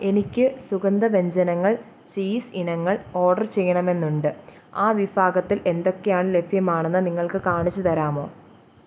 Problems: none marked